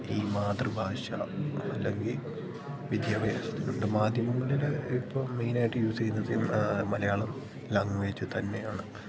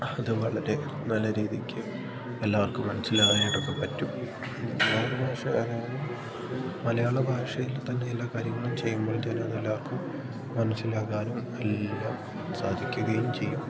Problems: none marked